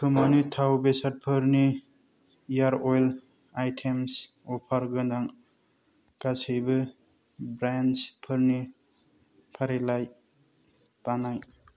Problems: low volume